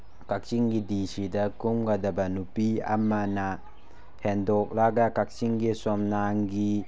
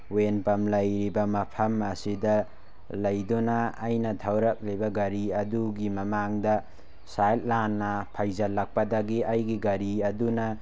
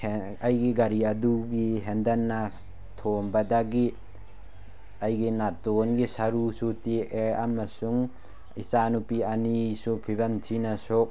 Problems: none marked